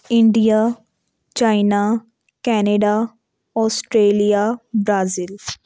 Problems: background sounds at intervals